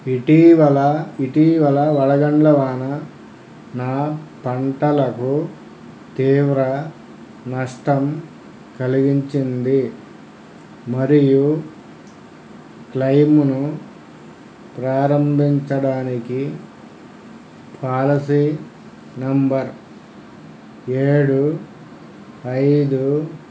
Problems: low volume